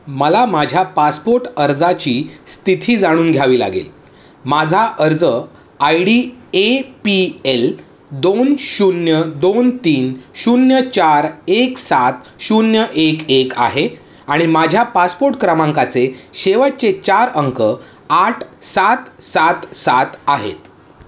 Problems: constant background noise